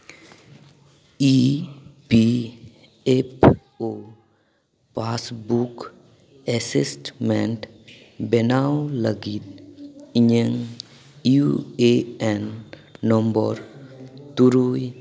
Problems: background conversations at intervals, echo